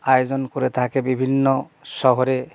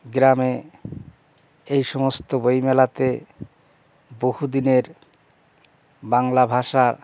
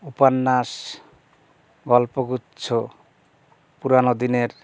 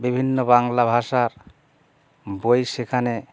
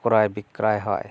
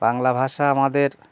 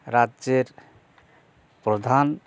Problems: background sounds at intervals